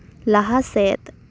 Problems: none marked